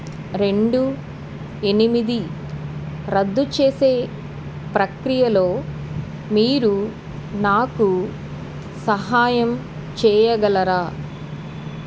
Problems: background sounds at intervals